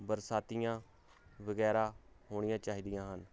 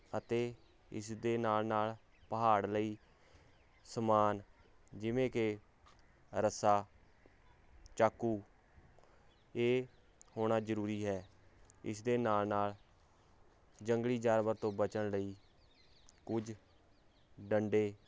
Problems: none marked